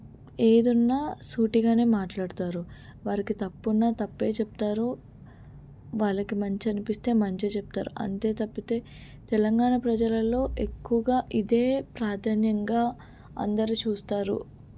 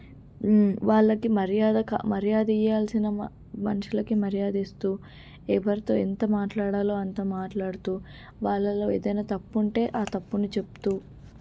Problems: low volume